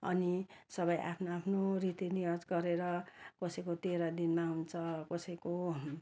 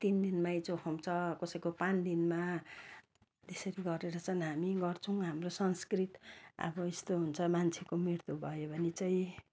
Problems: none marked